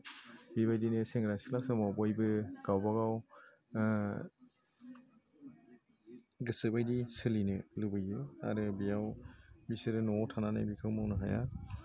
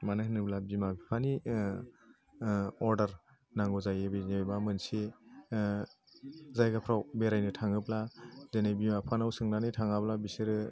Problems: none marked